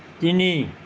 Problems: none marked